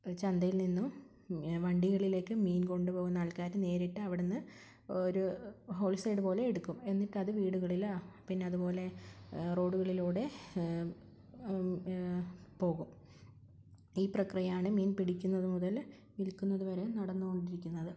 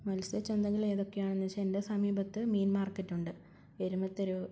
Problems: low volume